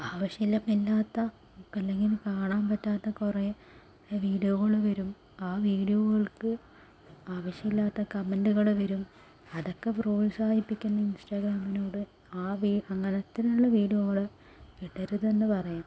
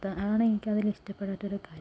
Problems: low volume